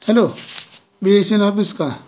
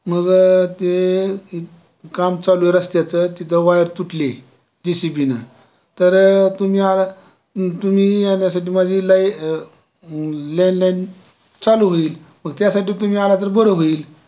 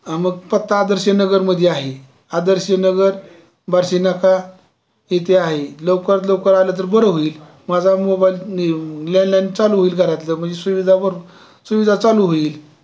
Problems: constant background noise, continuous background conversations